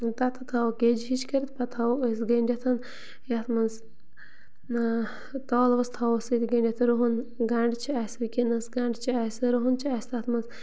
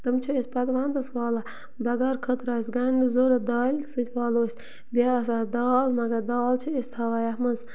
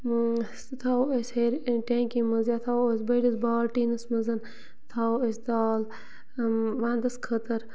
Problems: constant background noise, continuous background conversations